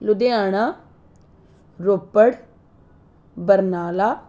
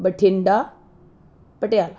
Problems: constant background noise